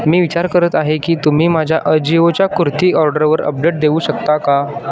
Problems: constant background noise, background conversations at intervals